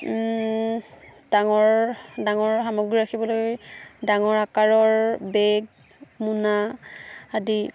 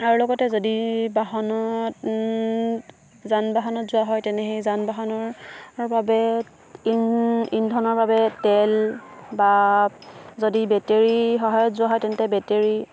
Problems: background sounds at intervals